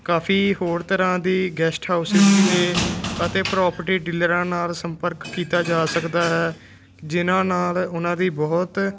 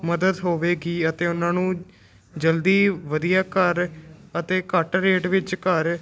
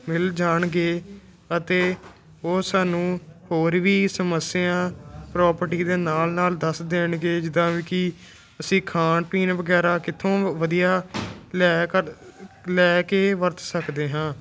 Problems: constant background noise